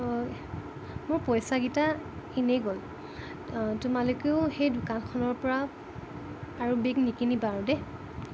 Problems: constant background noise, low volume